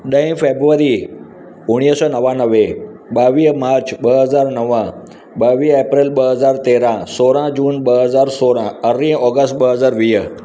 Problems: constant background noise